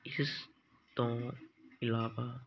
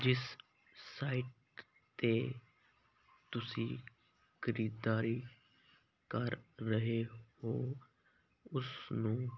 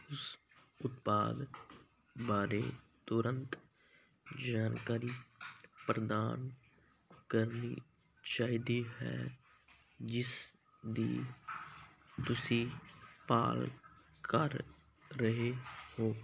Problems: constant background noise